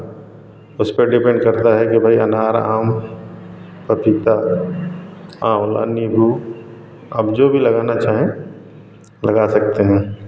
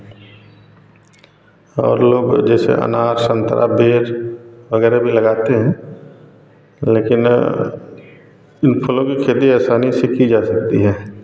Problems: none marked